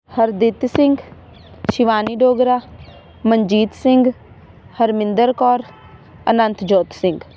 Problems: none marked